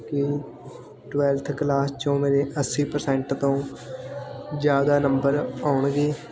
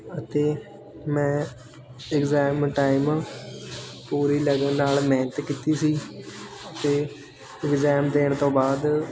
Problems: constant background noise